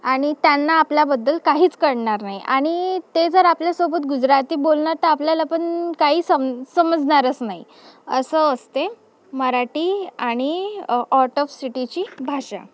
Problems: background sounds at intervals